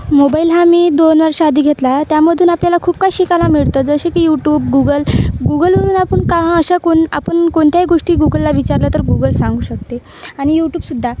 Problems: none marked